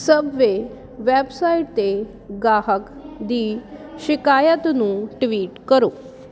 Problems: constant background noise